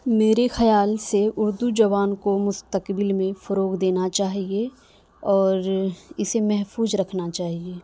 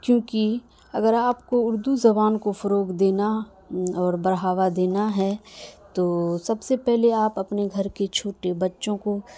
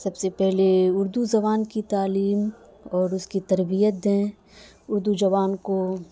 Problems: constant background noise